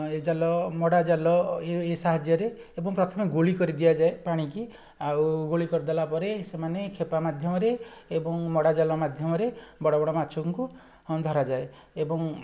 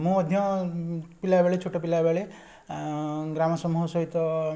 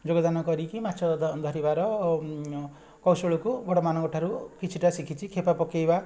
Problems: none marked